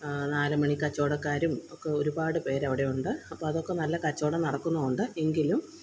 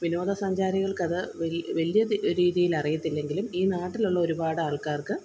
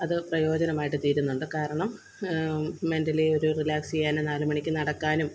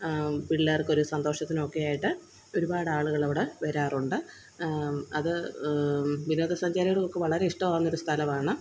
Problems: constant background noise